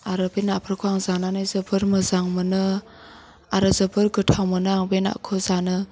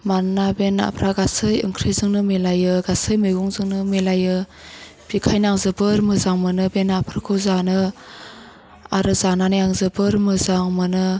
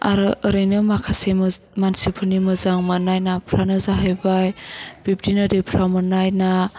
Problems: constant background noise